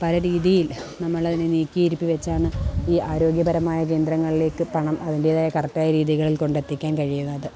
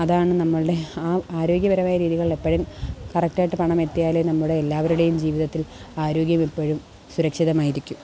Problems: background sounds at intervals